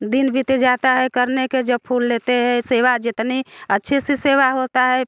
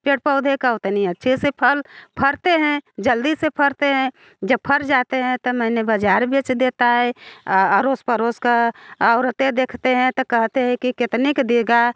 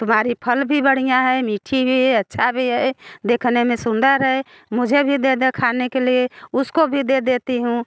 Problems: background sounds at intervals